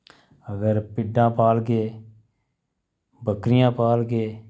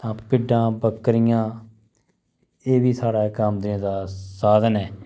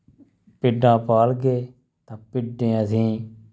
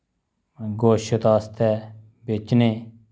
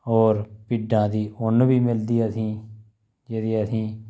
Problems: none marked